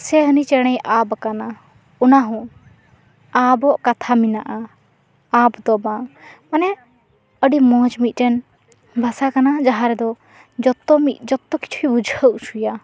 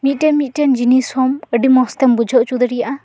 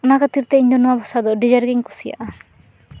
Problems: none marked